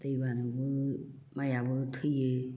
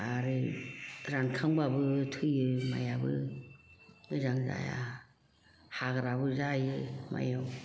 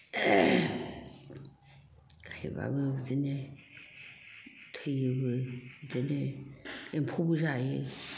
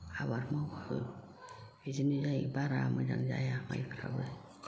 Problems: background sounds at intervals, background conversations at intervals